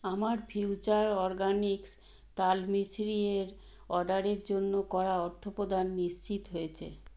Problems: none marked